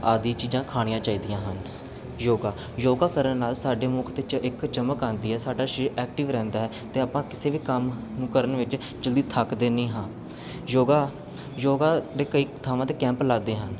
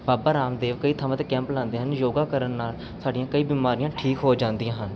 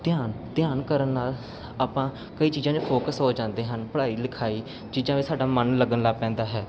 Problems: constant background noise